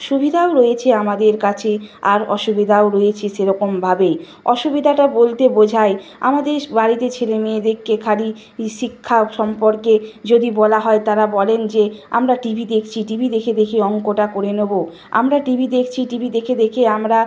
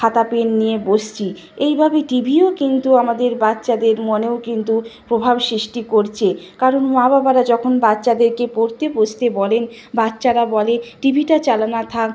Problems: constant background noise